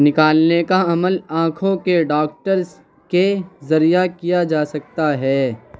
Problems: constant background noise, continuous background conversations